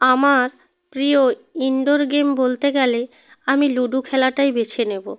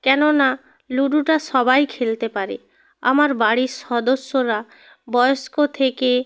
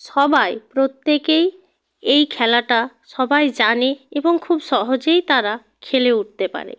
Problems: constant background noise